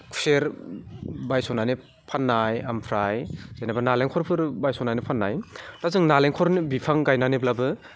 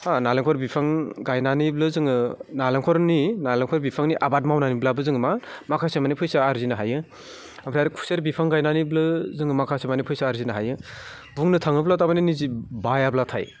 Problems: none marked